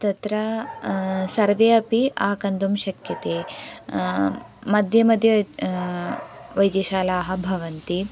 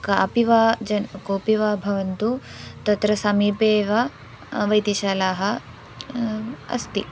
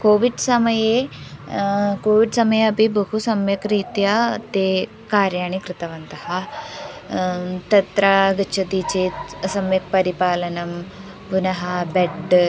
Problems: background sounds at intervals